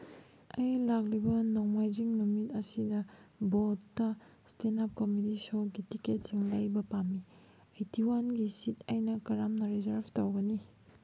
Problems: none marked